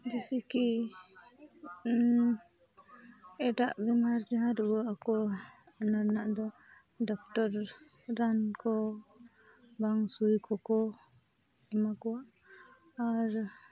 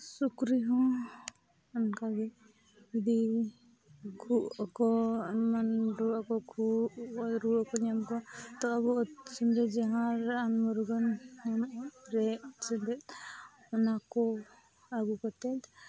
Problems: low volume